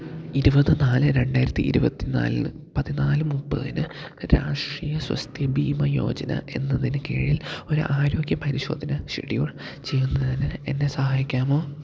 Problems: low volume